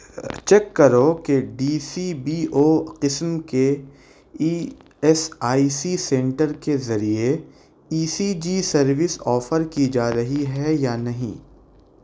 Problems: none marked